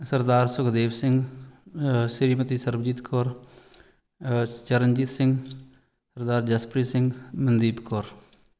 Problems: background sounds at intervals